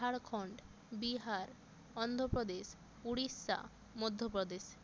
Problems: constant background noise